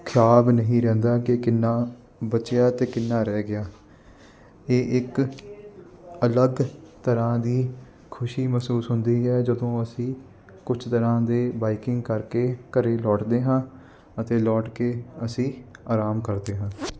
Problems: none marked